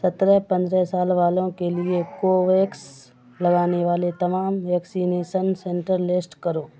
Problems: constant background noise